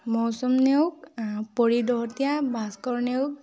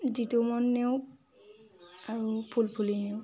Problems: constant background noise